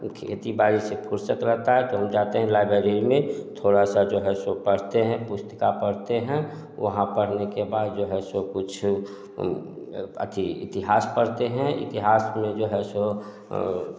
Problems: background sounds at intervals, echo